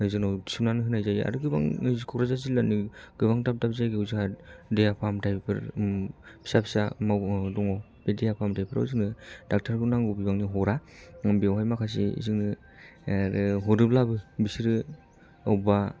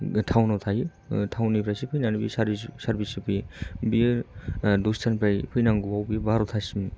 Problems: low volume